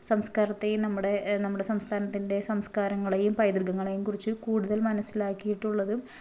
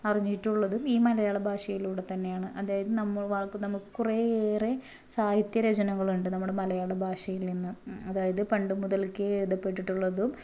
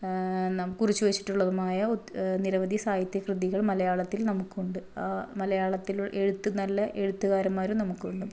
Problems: low volume